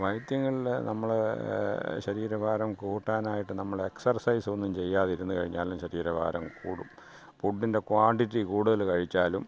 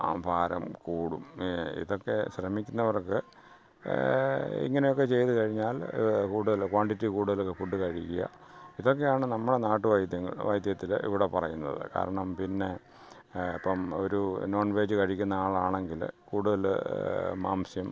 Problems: background sounds at intervals